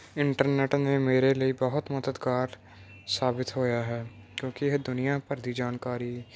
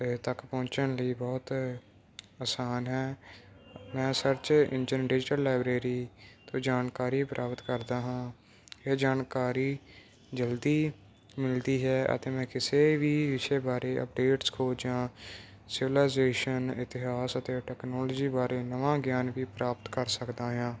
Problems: none marked